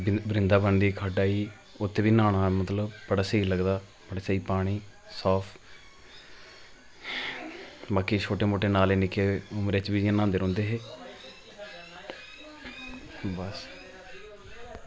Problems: constant background noise